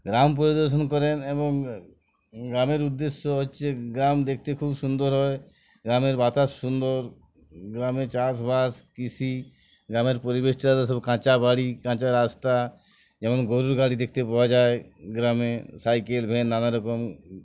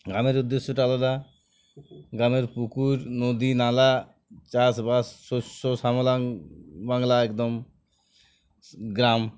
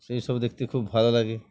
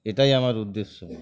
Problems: constant background noise, background conversations at intervals